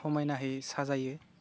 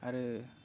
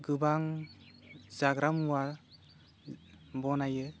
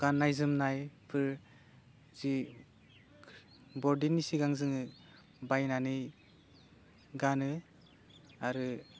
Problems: none marked